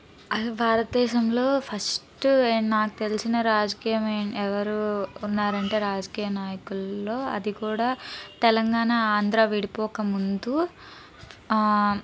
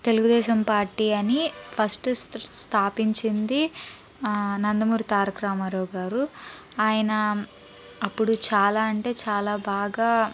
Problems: background conversations at intervals